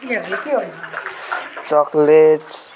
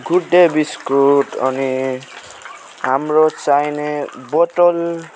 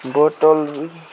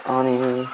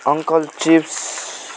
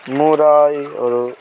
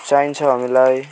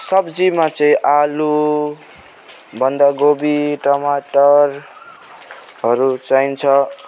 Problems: constant background noise